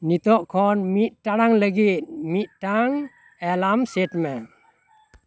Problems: background sounds at intervals, background conversations at intervals